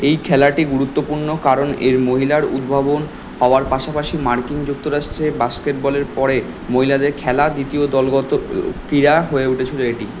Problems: constant background noise